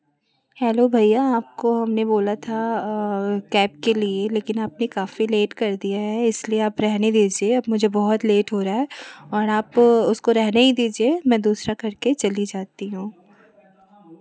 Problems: none marked